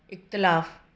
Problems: none marked